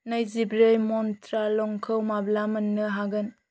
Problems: constant background noise